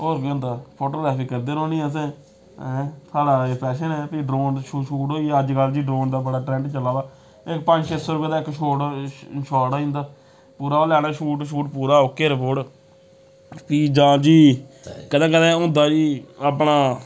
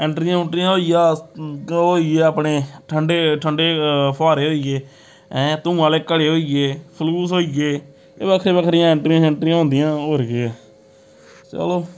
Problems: constant background noise